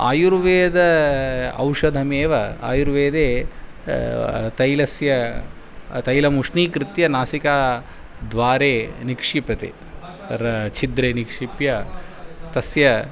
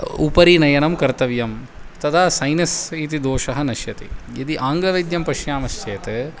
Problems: constant background noise